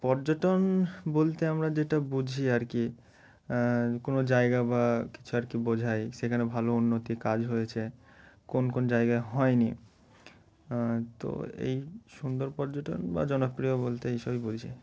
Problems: background sounds at intervals